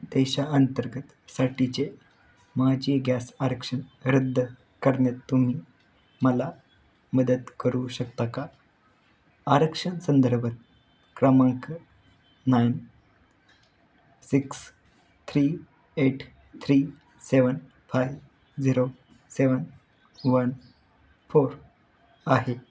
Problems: background sounds at intervals